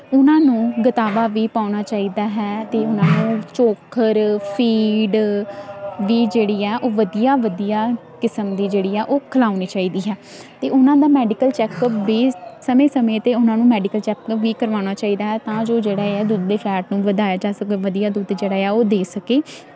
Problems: constant background noise